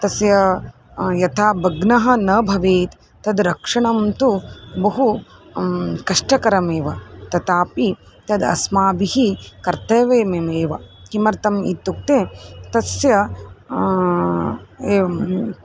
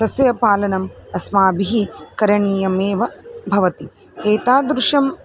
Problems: none marked